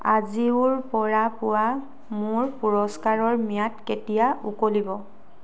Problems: background sounds at intervals